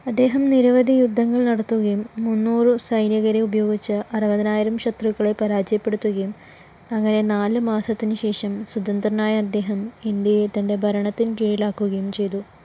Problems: none marked